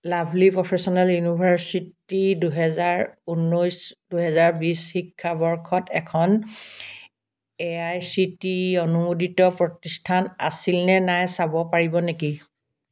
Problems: background sounds at intervals